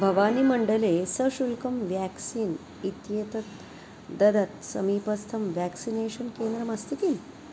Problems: constant background noise